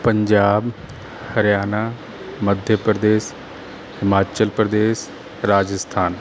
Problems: background sounds at intervals